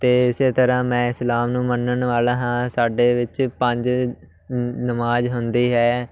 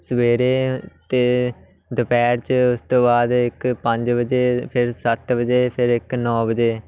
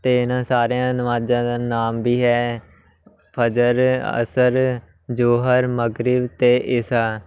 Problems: none marked